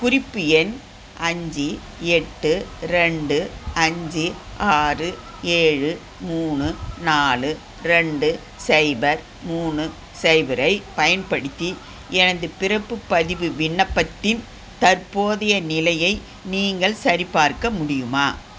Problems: constant background noise